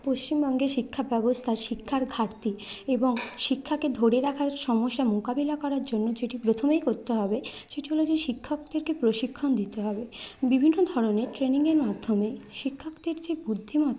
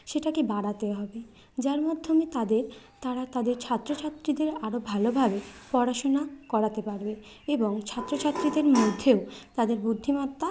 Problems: none marked